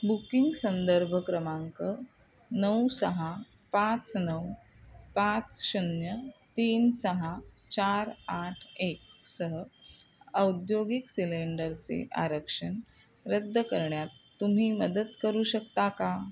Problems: constant background noise